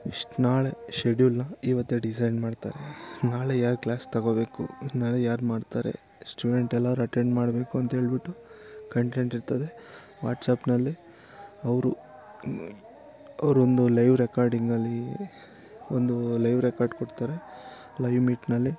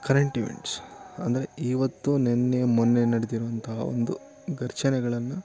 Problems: constant background noise